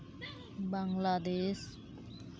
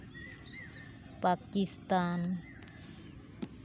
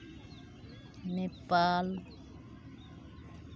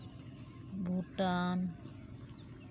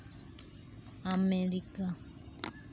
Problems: none marked